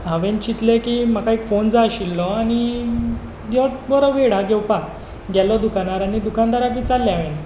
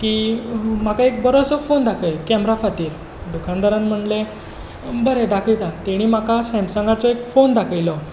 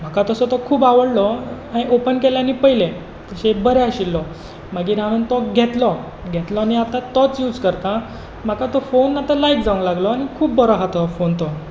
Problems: constant background noise